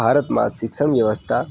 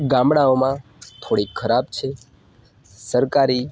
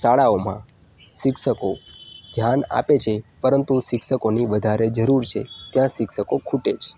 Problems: none marked